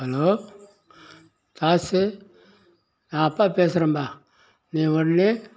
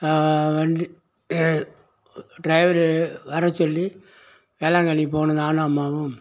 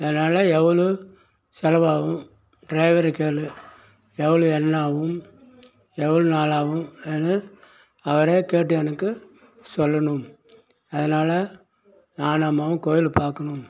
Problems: constant background noise, background conversations at intervals